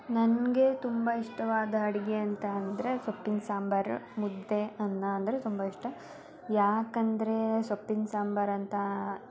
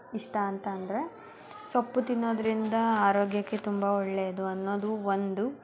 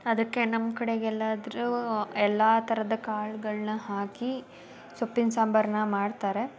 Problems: constant background noise, continuous background conversations